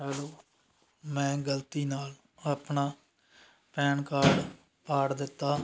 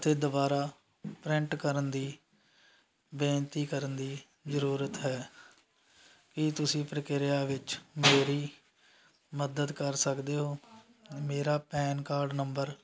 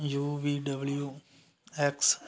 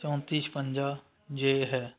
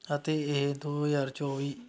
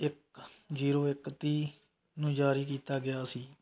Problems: none marked